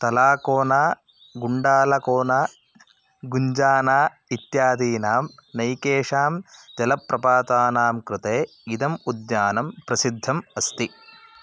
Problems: constant background noise